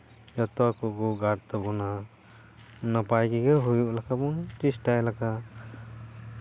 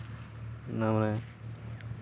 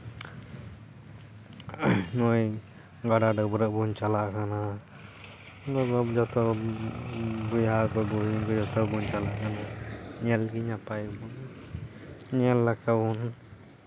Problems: background sounds at intervals